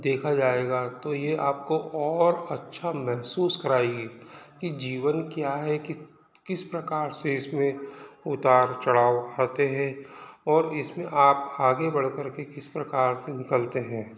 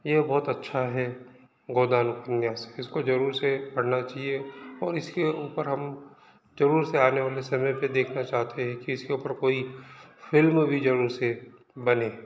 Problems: background sounds at intervals, background conversations at intervals